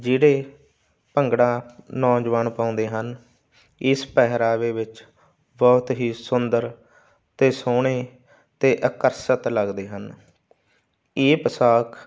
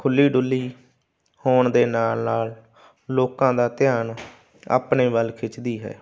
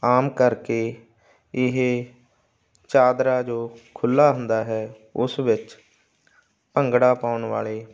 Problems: constant background noise